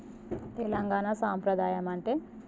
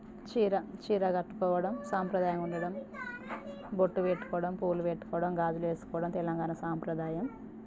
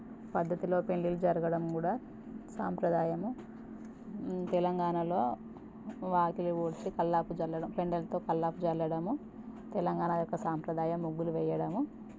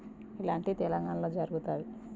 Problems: constant background noise